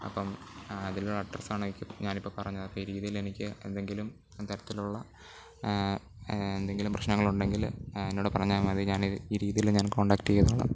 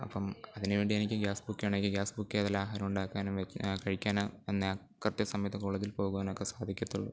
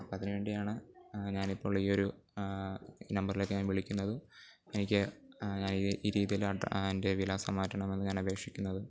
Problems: background sounds at intervals, low volume